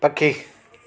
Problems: constant background noise, echo